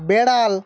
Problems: constant background noise, background conversations at intervals